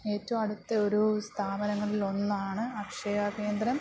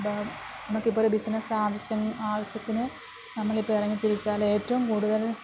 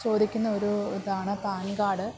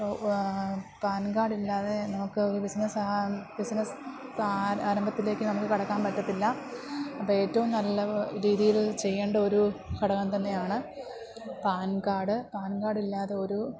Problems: background sounds at intervals